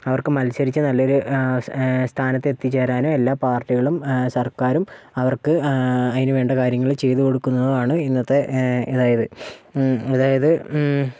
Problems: none marked